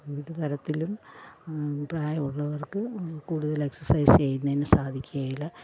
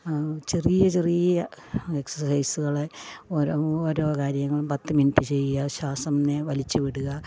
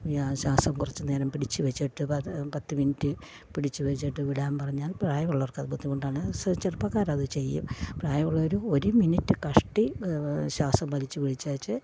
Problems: low volume